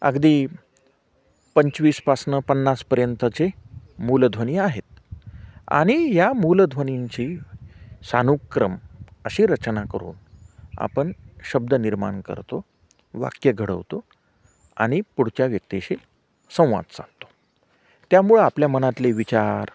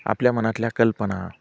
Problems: constant background noise, background conversations at intervals